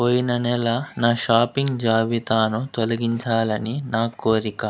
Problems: constant background noise